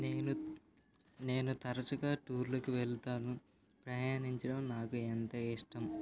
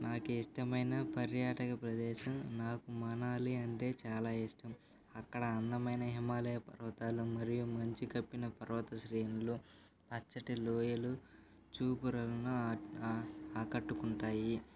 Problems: constant background noise